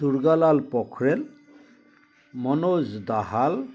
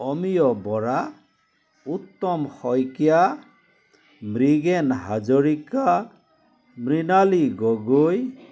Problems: constant background noise, continuous background conversations